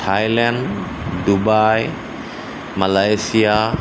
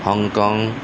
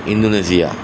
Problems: constant background noise